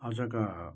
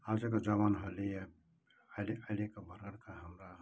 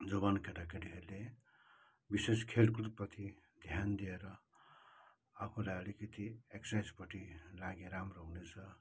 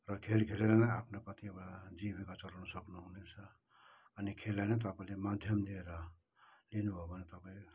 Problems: low volume